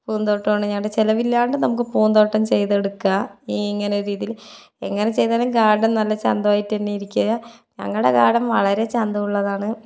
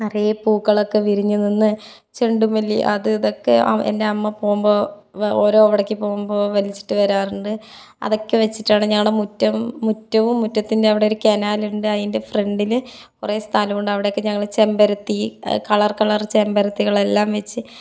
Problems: none marked